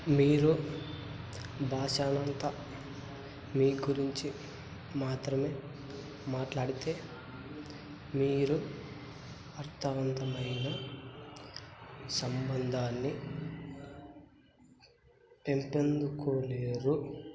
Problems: low volume